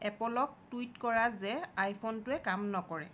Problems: none marked